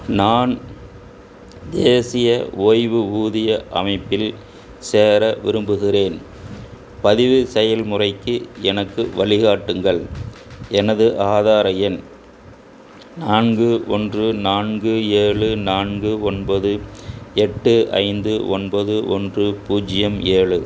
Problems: none marked